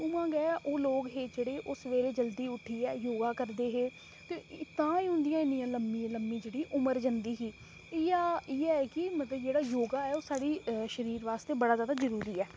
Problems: constant background noise